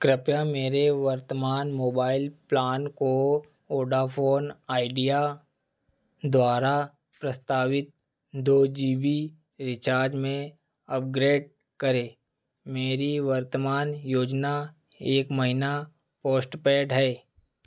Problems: none marked